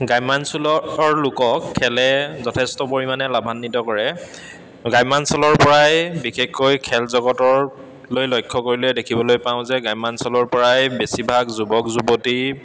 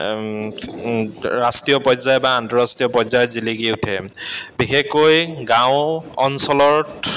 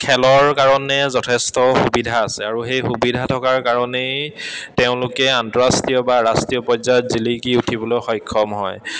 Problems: constant background noise, echo